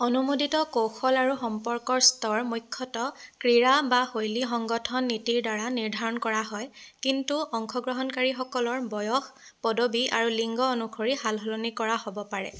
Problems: constant background noise